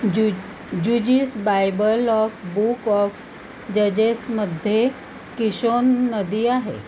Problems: constant background noise